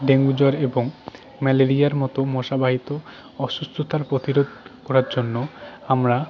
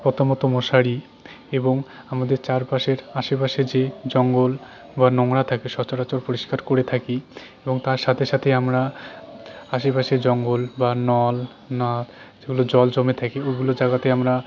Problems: none marked